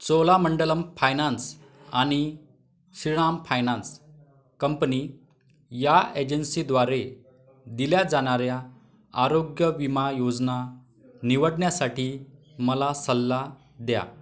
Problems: continuous background conversations